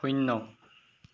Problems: background sounds at intervals